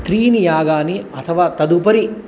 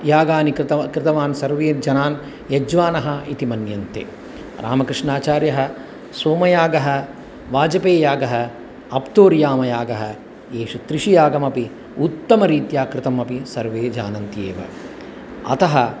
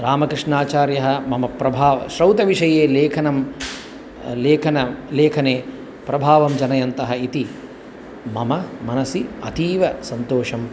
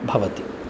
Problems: constant background noise